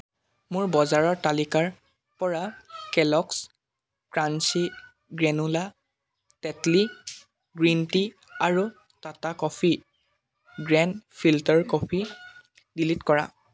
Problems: constant background noise